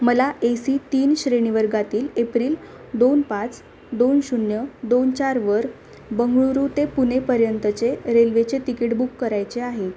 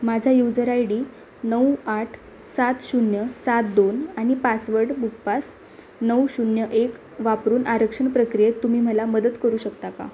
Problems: constant background noise, background conversations at intervals